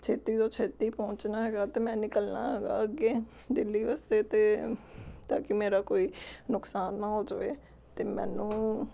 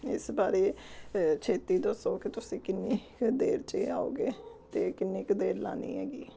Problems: background sounds at intervals